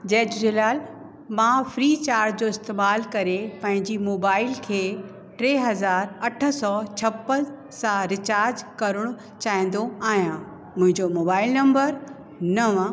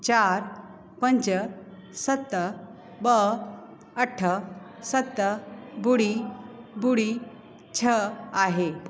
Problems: constant background noise, echo